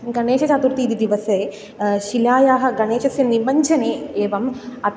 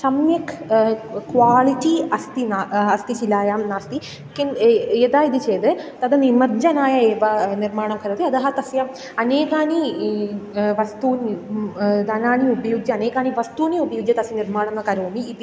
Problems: background sounds at intervals